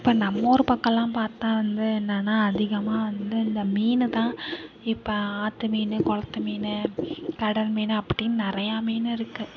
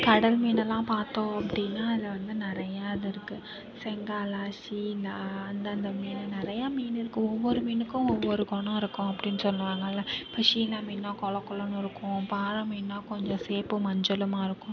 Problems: background conversations at intervals